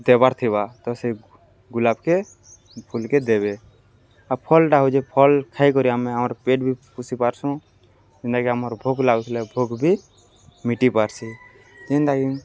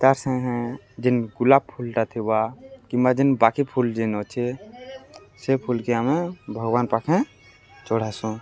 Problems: none marked